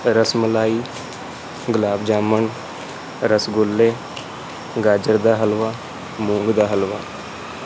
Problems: constant background noise